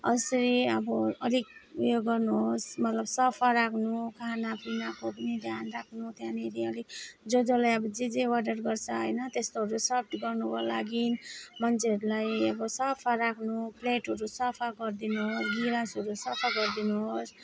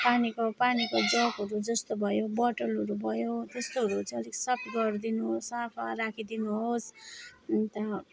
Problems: none marked